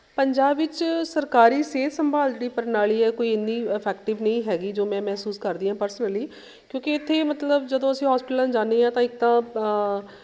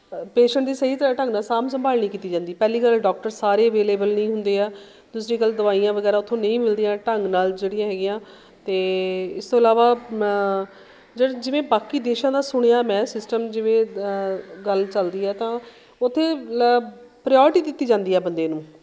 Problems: background sounds at intervals